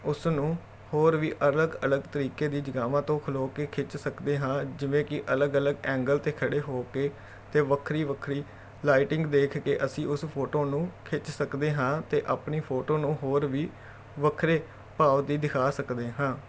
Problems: none marked